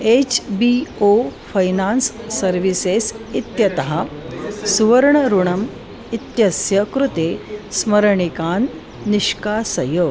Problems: constant background noise